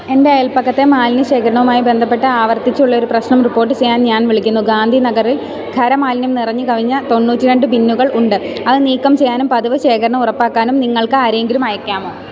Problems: constant background noise